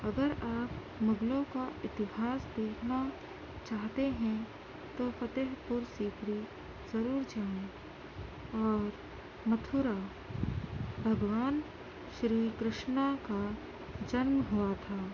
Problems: constant background noise, low volume